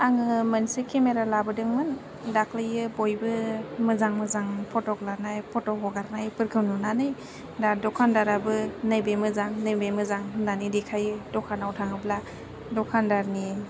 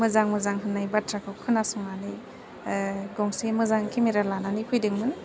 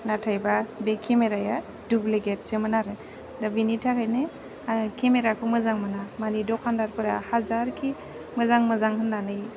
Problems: low volume